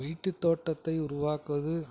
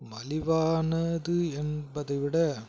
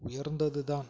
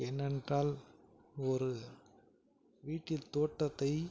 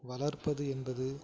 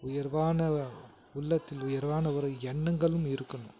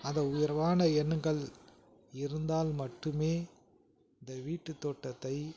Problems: background conversations at intervals